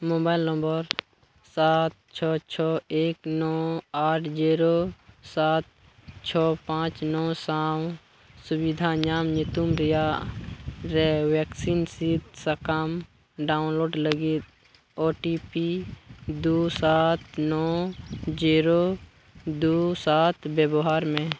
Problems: constant background noise